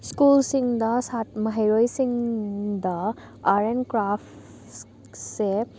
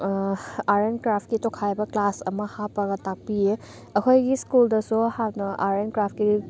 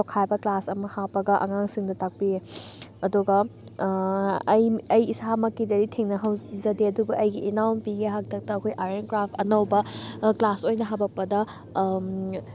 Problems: none marked